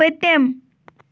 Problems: background sounds at intervals